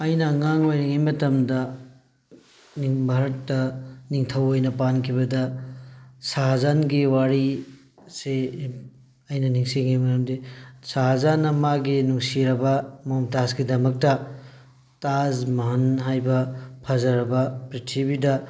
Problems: background sounds at intervals